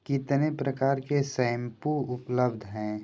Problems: background sounds at intervals